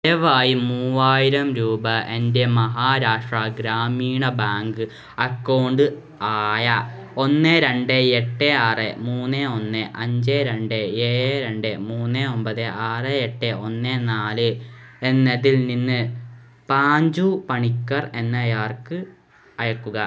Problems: background sounds at intervals